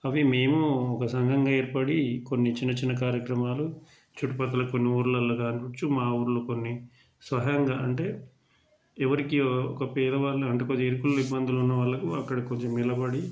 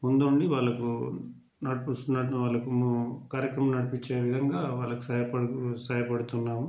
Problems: background conversations at intervals